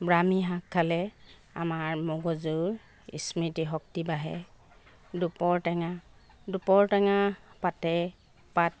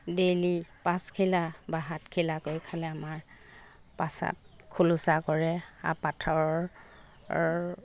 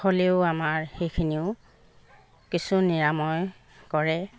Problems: constant background noise